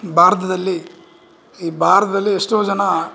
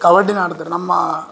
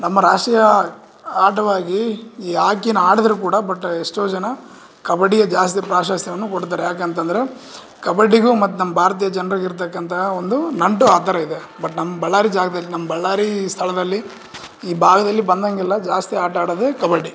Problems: none marked